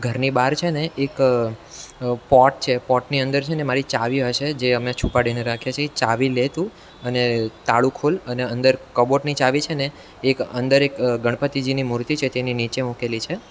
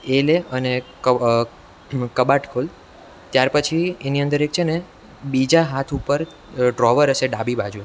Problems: none marked